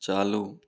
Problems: none marked